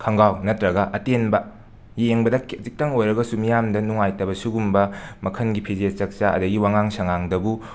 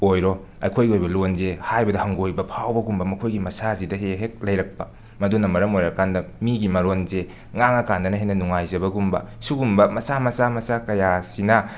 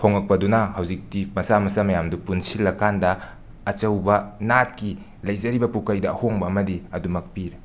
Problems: none marked